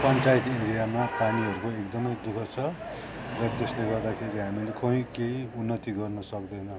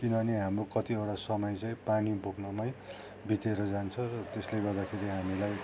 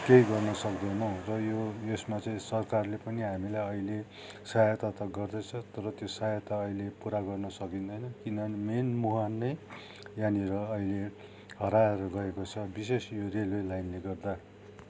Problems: constant background noise